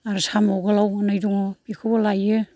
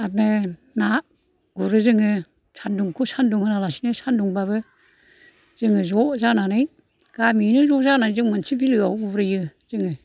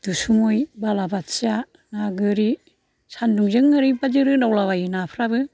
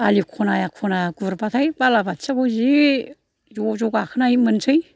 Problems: low volume